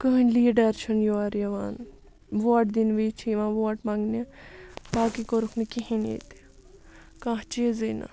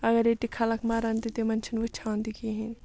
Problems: none marked